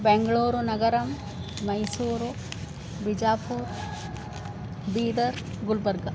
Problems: constant background noise